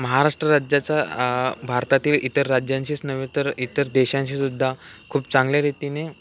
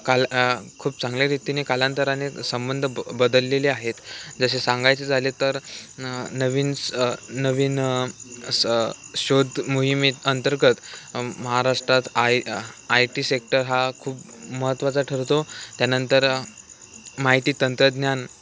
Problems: none marked